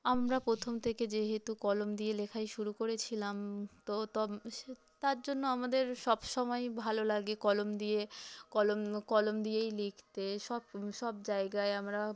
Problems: background sounds at intervals, background conversations at intervals